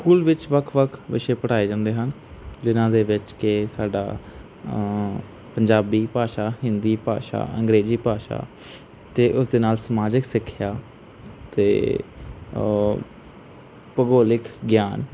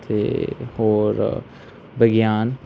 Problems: background sounds at intervals